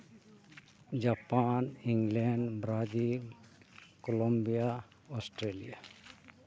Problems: none marked